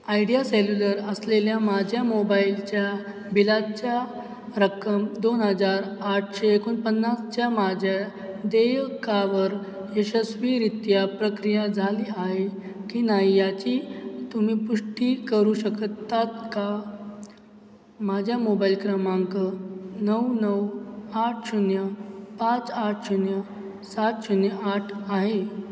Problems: none marked